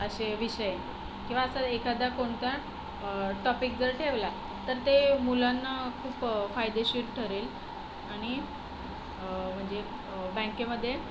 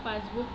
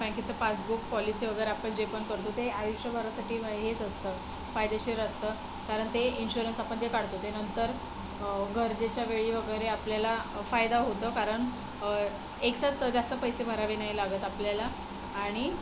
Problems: none marked